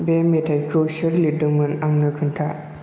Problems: constant background noise